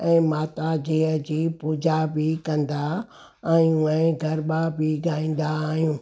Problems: none marked